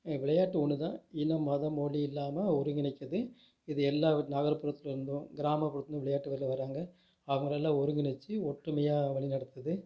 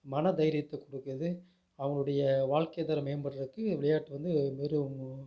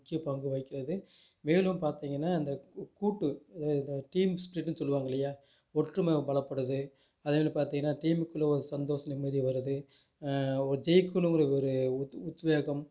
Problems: low volume